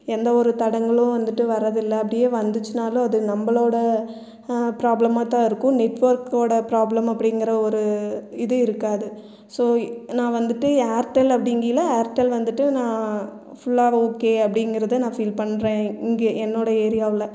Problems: none marked